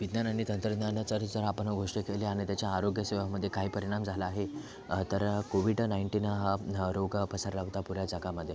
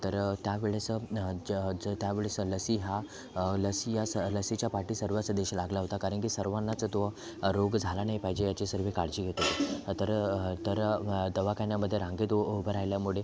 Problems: constant background noise